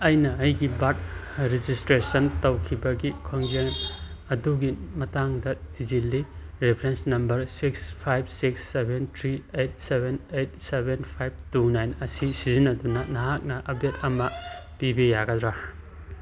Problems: constant background noise